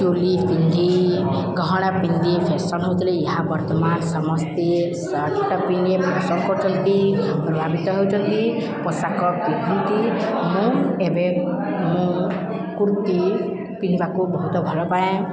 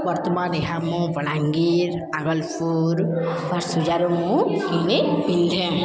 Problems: constant background noise, continuous background conversations